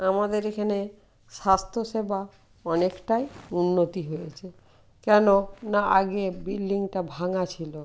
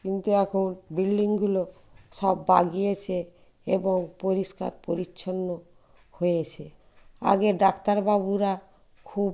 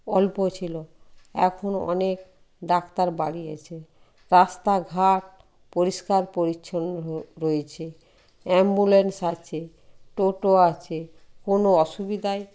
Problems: background sounds at intervals